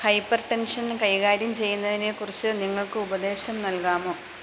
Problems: constant background noise